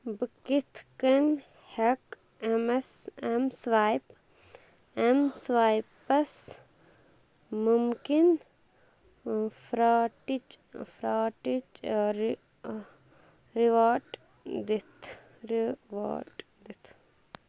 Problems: constant background noise